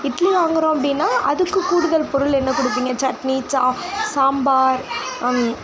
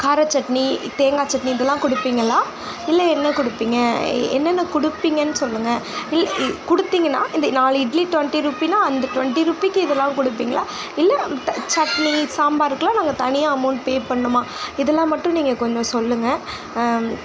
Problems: background sounds at intervals